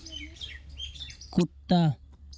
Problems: constant background noise